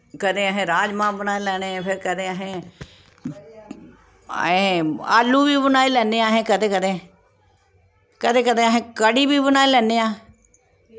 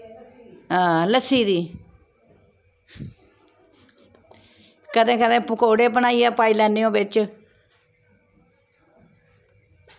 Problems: constant background noise, background conversations at intervals